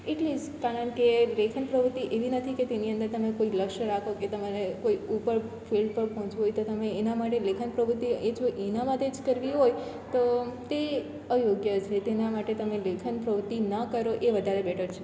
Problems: none marked